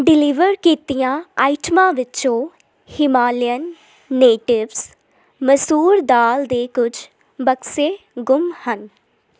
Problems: constant background noise